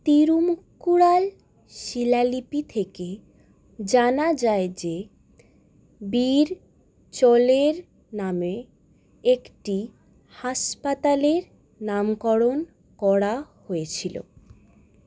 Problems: none marked